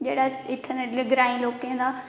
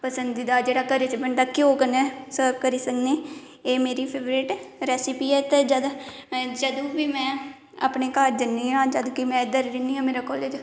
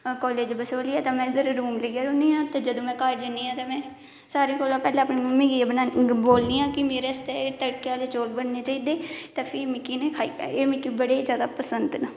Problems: background sounds at intervals, echo